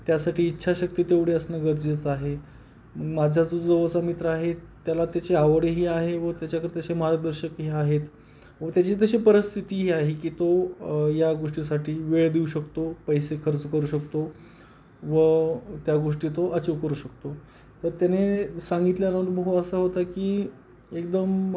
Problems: background sounds at intervals